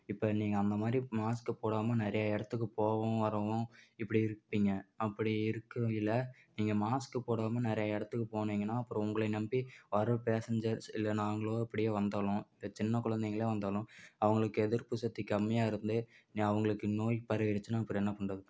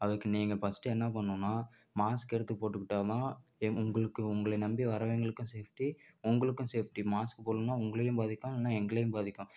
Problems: none marked